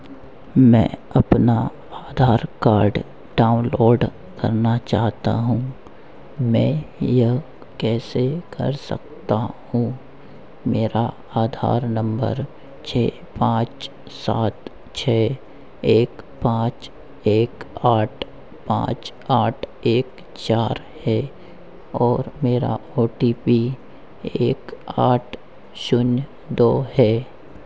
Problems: constant background noise